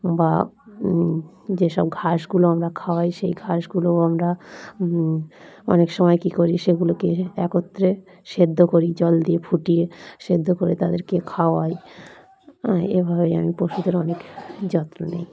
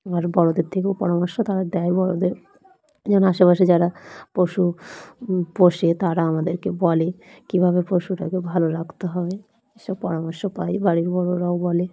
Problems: constant background noise, continuous background conversations